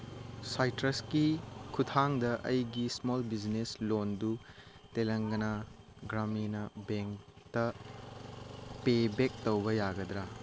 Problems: none marked